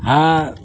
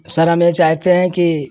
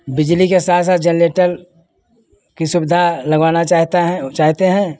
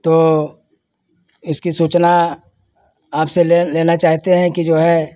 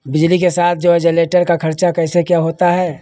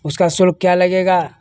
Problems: none marked